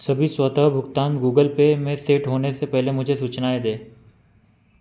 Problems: none marked